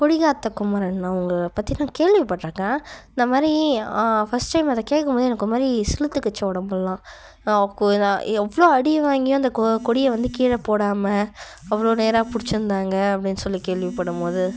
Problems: background sounds at intervals